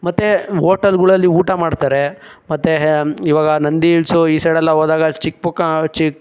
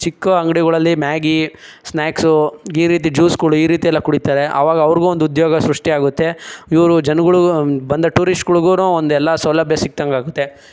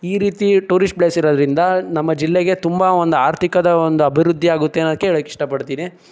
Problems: none marked